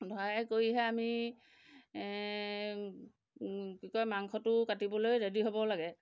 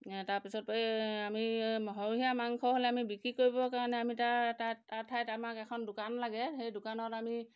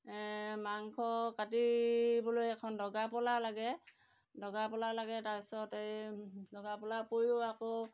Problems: none marked